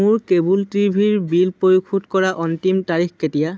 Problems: none marked